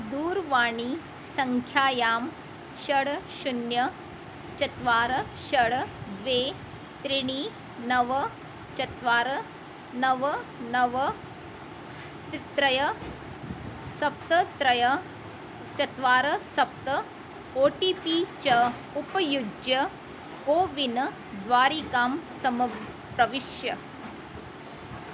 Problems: constant background noise